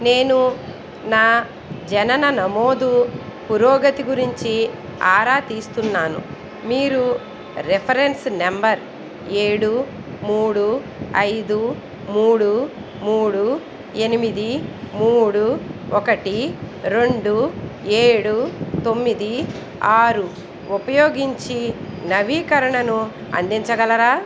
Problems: none marked